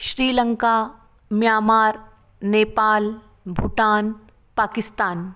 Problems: none marked